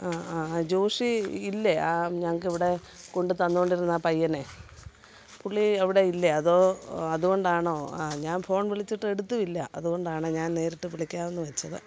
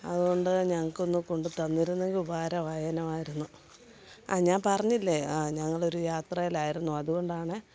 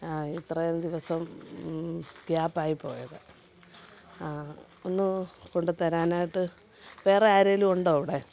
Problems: none marked